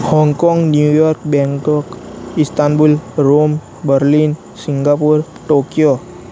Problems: constant background noise